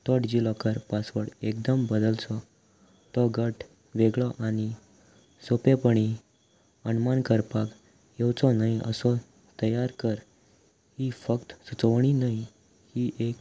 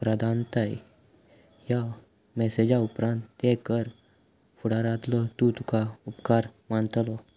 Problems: none marked